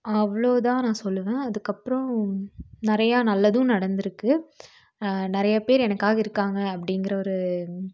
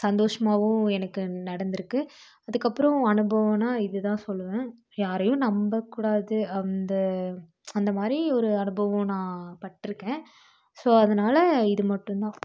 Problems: none marked